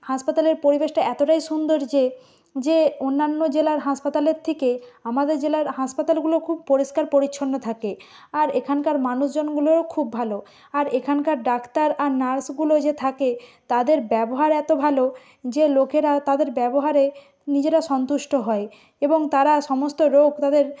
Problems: background sounds at intervals